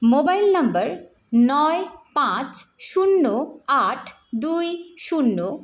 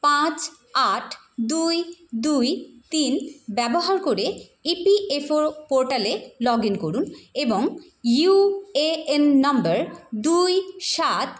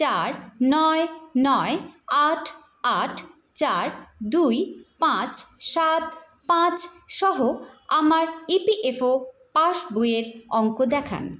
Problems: background sounds at intervals